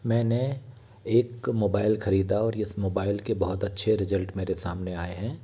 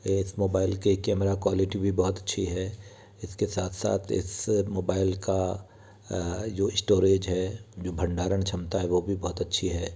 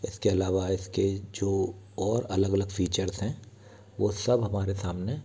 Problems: constant background noise, background conversations at intervals